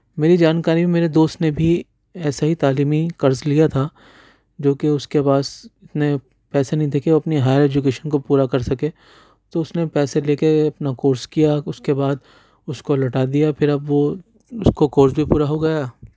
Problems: none marked